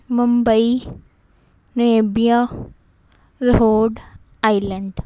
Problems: constant background noise